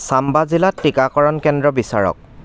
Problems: constant background noise